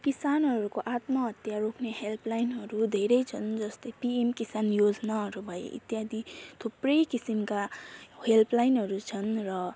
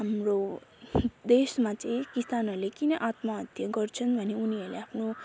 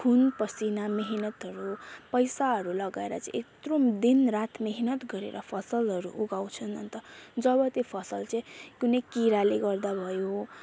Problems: constant background noise